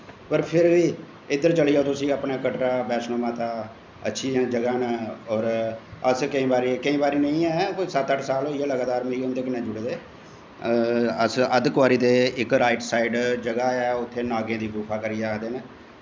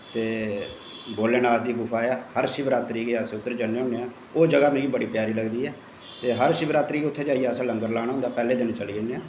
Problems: constant background noise, echo, low volume